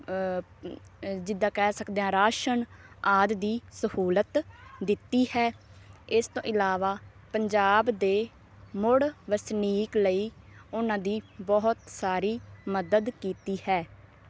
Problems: none marked